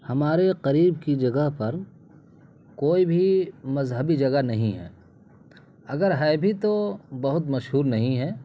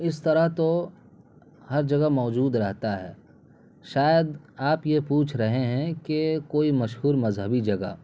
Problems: constant background noise